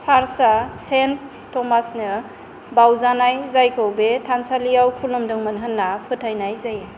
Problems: constant background noise